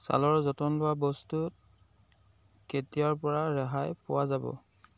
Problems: none marked